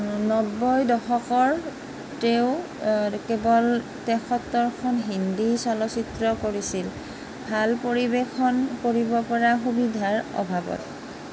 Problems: constant background noise